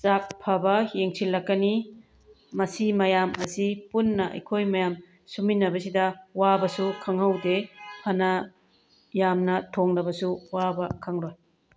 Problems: background sounds at intervals